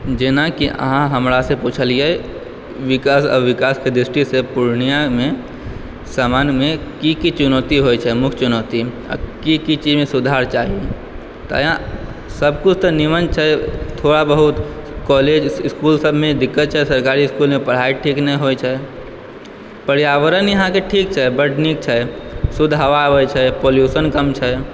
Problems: background sounds at intervals